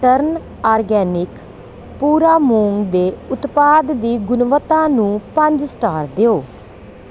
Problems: none marked